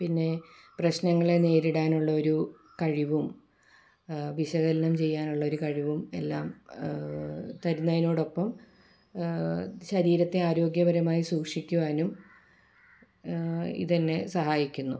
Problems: background sounds at intervals